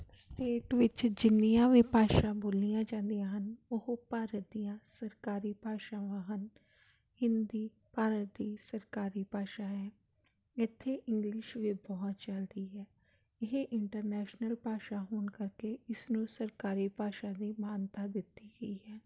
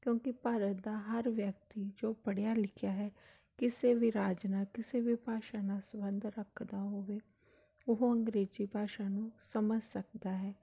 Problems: none marked